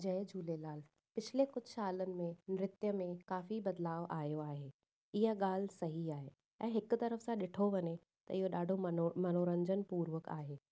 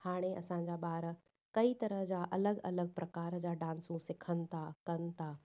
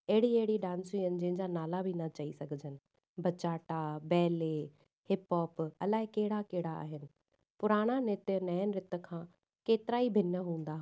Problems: none marked